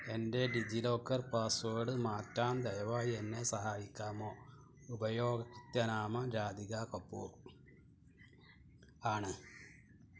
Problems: background sounds at intervals